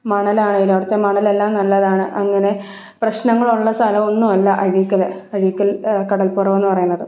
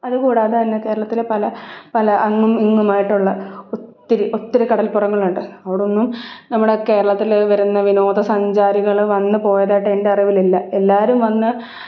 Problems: none marked